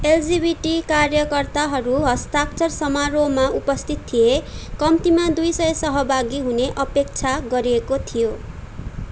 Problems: none marked